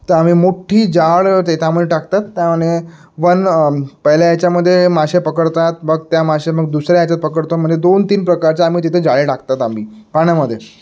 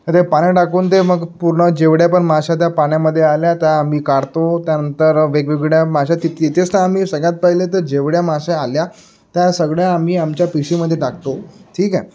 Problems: background sounds at intervals